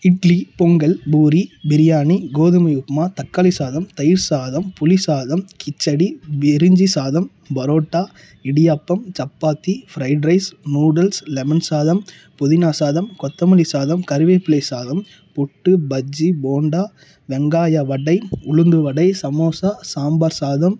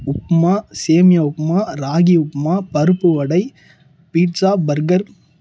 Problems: low volume